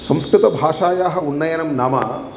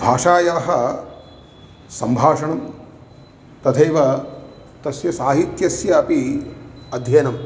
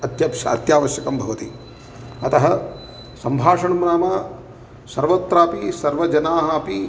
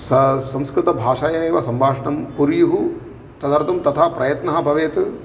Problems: none marked